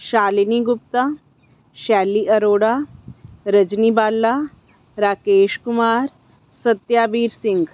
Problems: background sounds at intervals